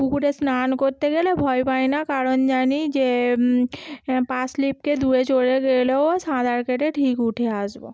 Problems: none marked